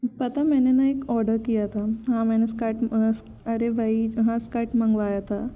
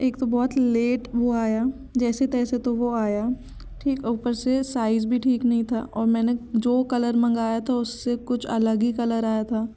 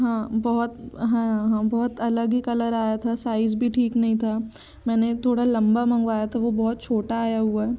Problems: none marked